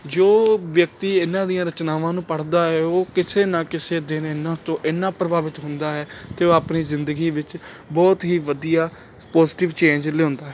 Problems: none marked